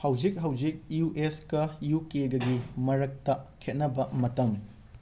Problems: background sounds at intervals